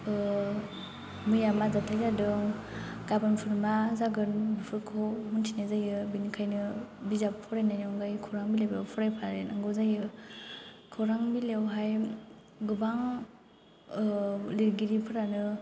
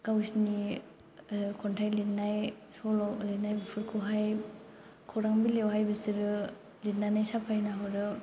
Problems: none marked